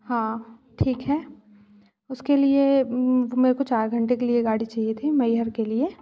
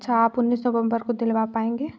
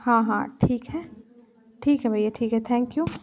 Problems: constant background noise, background conversations at intervals